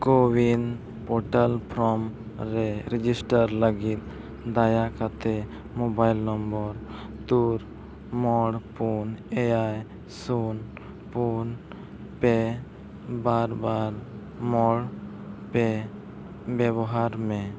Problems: none marked